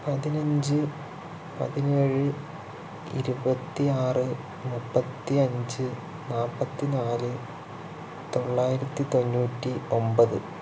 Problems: constant background noise